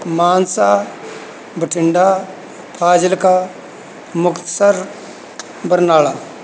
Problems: background sounds at intervals